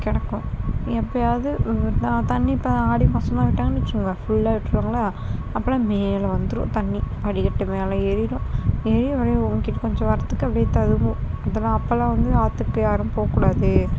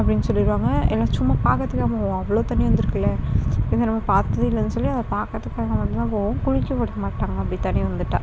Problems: constant background noise